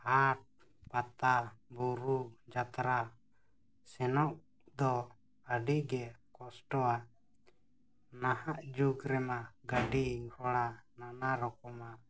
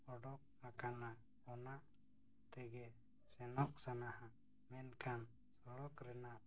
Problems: low volume